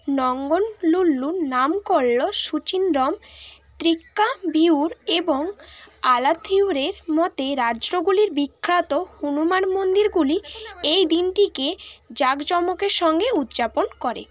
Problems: none marked